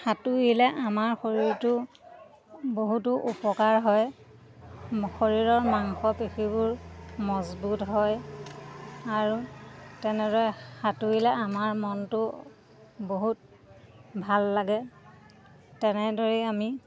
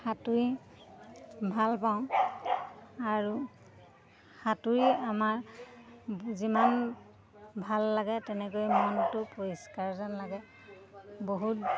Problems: constant background noise, background conversations at intervals